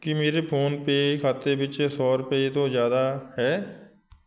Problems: background sounds at intervals